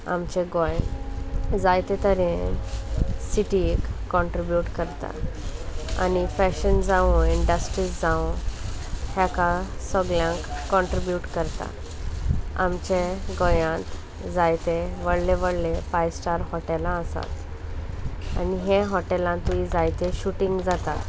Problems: none marked